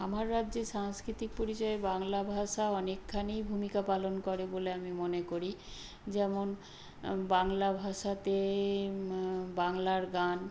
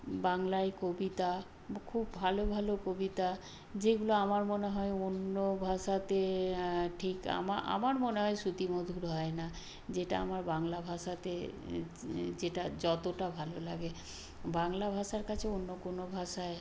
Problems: none marked